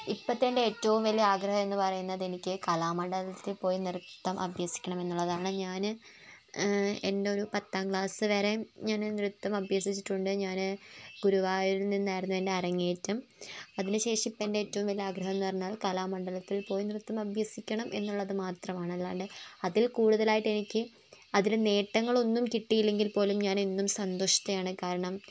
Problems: none marked